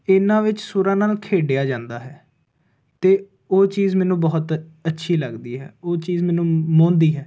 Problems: constant background noise